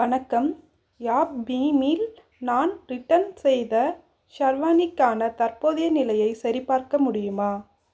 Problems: none marked